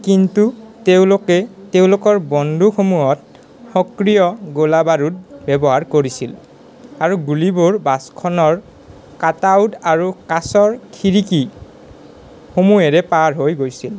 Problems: background conversations at intervals